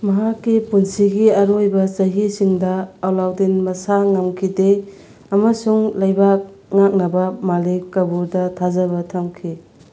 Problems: none marked